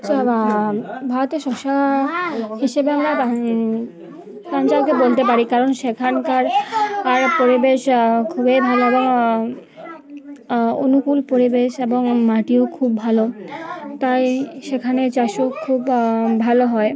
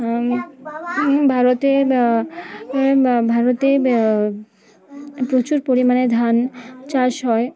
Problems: constant background noise, background conversations at intervals